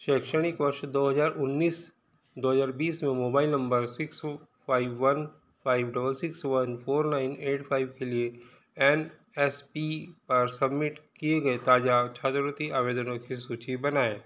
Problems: background sounds at intervals